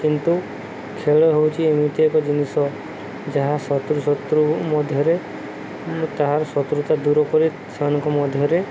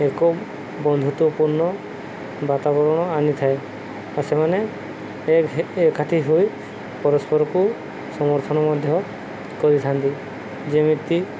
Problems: constant background noise